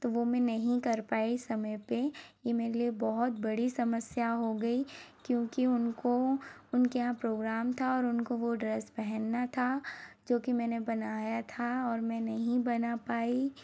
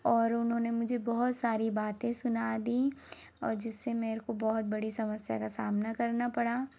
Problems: none marked